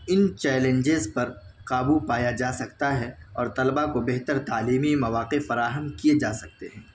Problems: background sounds at intervals, background conversations at intervals